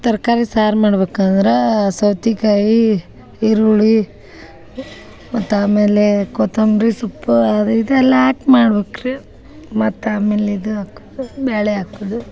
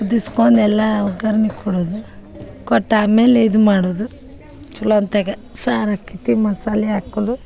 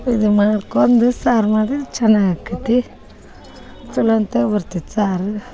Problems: background sounds at intervals